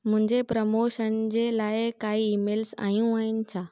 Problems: none marked